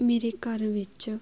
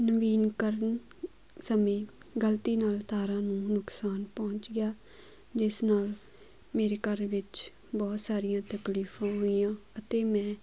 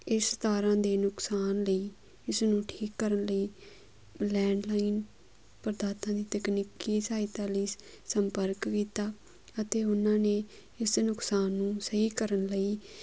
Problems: background sounds at intervals